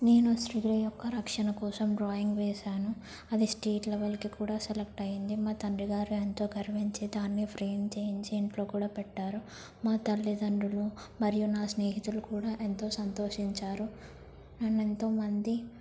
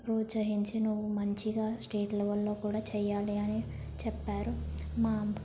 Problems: low volume